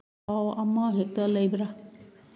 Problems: none marked